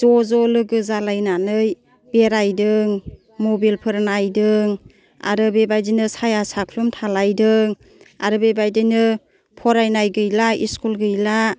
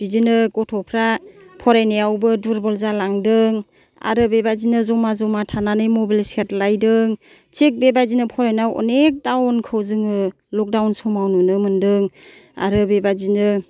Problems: none marked